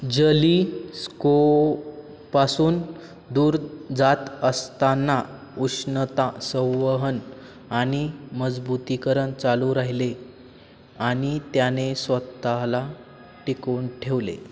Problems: constant background noise